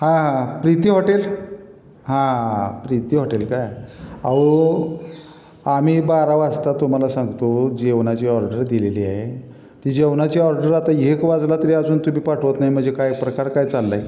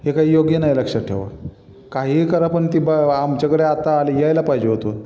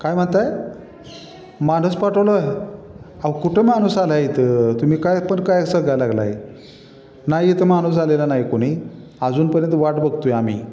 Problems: constant background noise, echo